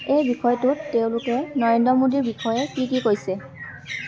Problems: constant background noise